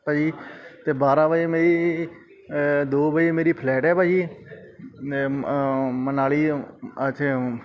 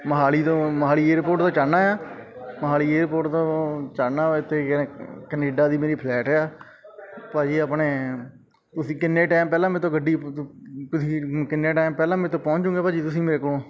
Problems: background sounds at intervals, background conversations at intervals